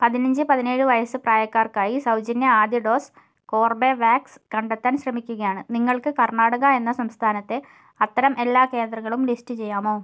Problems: none marked